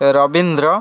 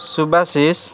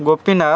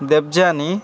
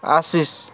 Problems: constant background noise